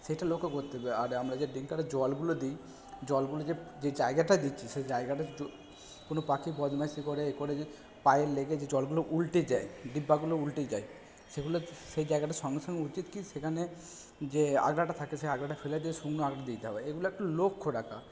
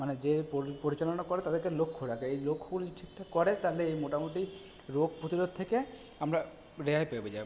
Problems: background sounds at intervals